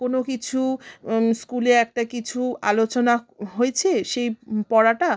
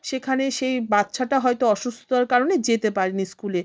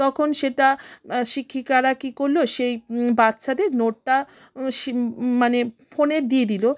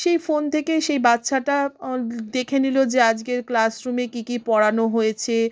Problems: none marked